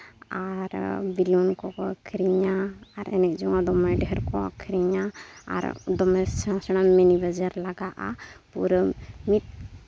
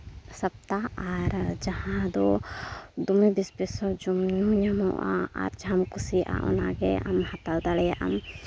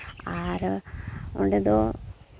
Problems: none marked